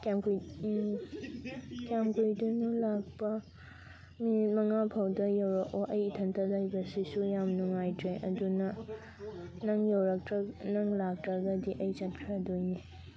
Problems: constant background noise, continuous background conversations